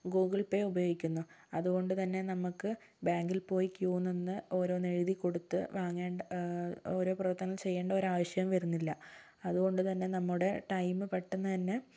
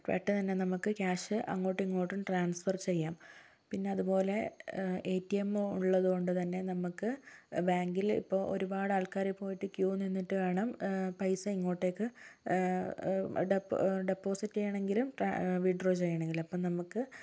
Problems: low volume